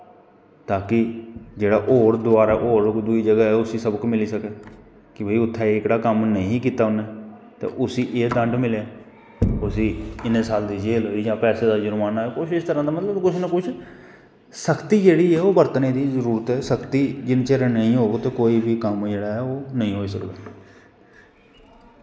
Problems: none marked